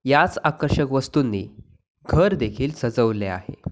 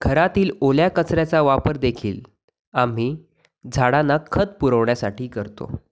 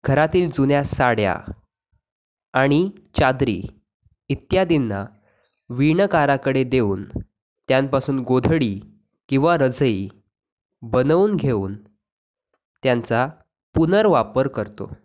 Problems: background sounds at intervals